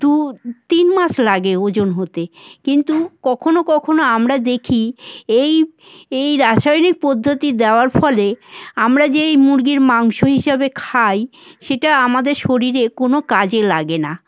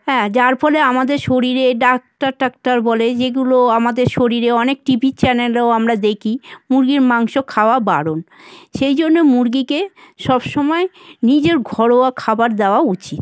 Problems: constant background noise